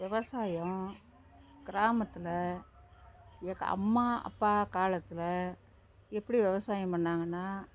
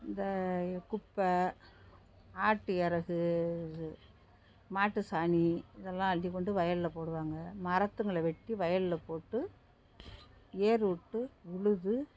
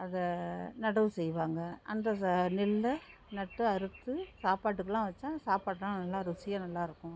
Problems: low volume